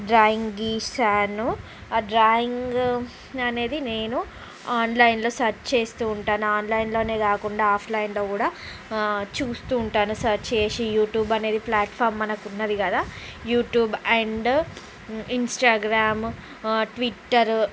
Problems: constant background noise